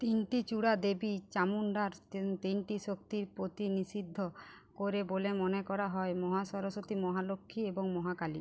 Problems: none marked